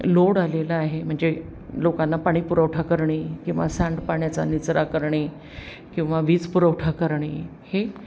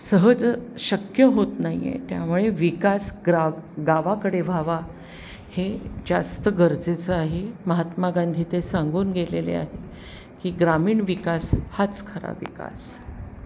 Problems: background sounds at intervals